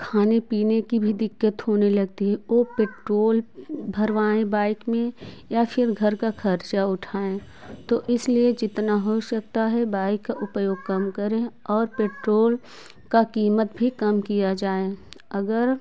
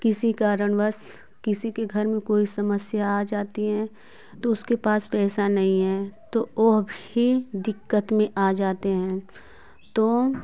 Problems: constant background noise